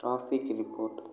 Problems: low volume